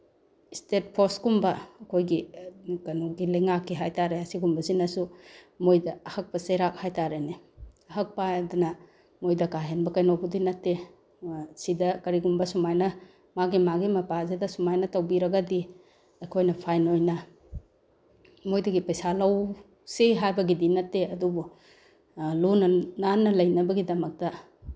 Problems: none marked